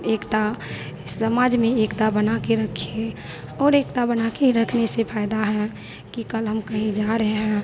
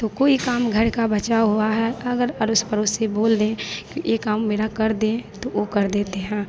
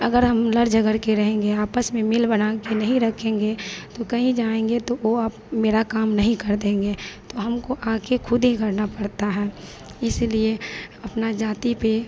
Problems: none marked